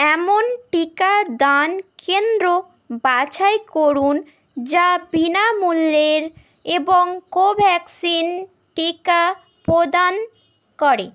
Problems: none marked